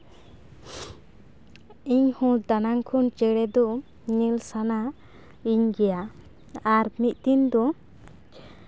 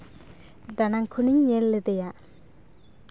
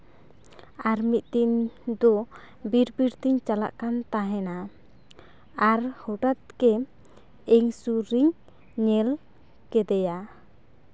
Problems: background sounds at intervals, background conversations at intervals